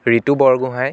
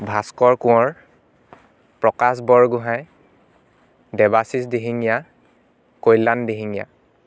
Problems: constant background noise